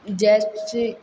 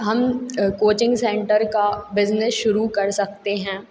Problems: none marked